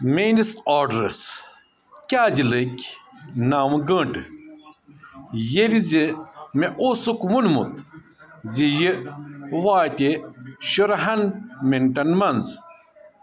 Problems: constant background noise